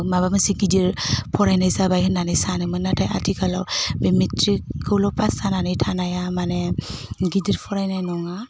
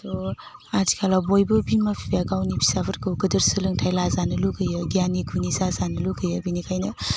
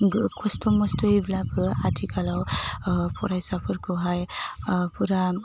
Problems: constant background noise